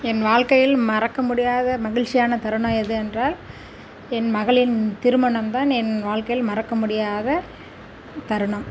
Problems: background sounds at intervals